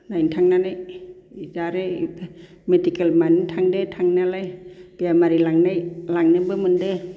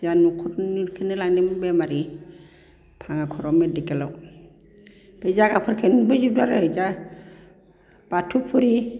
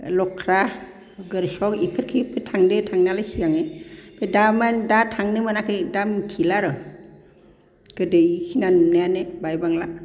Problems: constant background noise